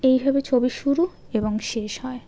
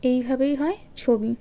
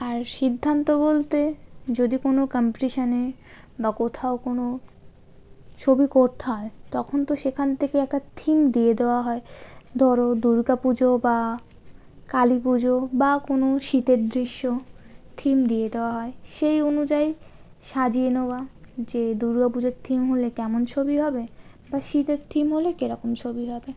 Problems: constant background noise